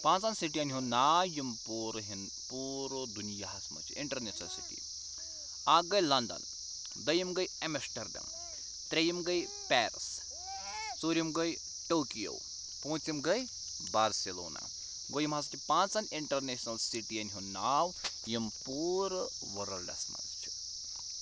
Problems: constant background noise, background conversations at intervals